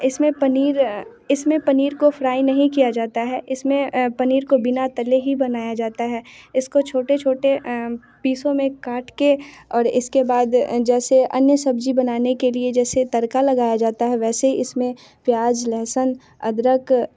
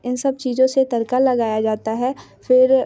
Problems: constant background noise, background conversations at intervals